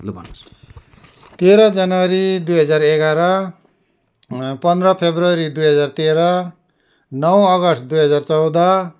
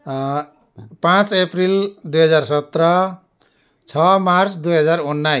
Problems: constant background noise